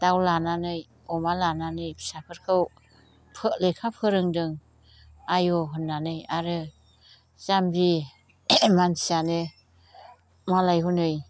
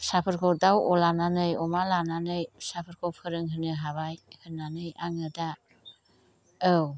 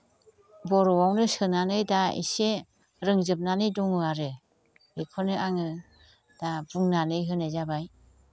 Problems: constant background noise